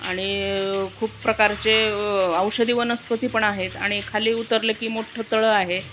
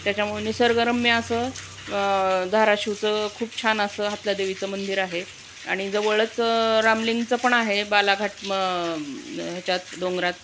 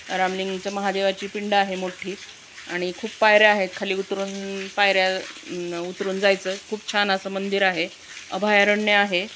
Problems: constant background noise